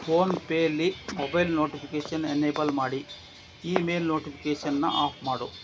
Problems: background sounds at intervals